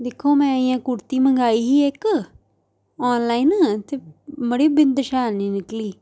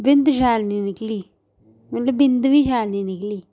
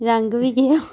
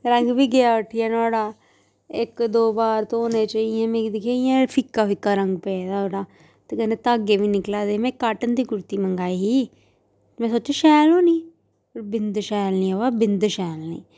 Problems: none marked